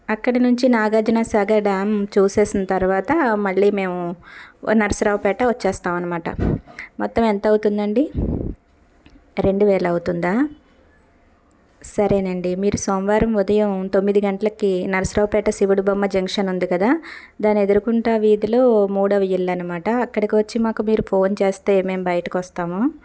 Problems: constant background noise